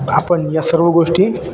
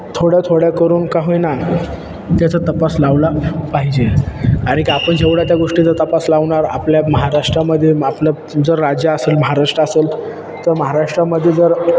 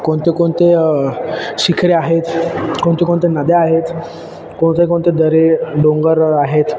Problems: constant background noise